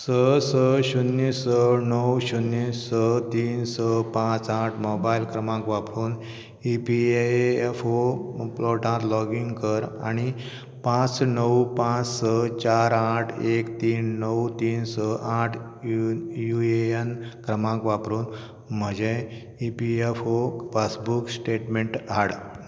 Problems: none marked